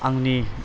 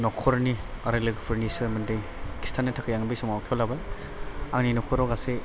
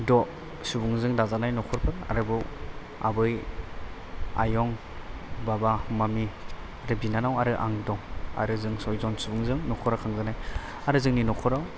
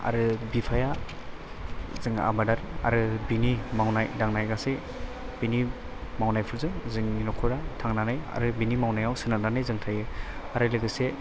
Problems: background sounds at intervals